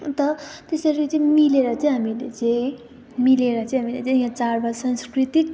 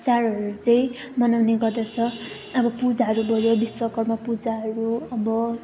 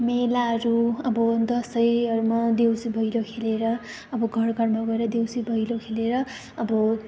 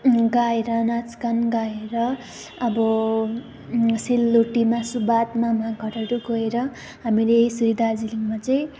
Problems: background conversations at intervals